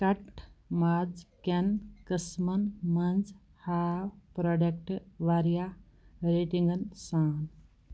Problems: background sounds at intervals